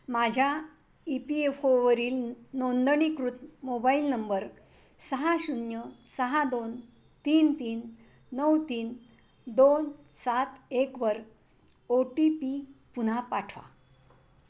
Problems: constant background noise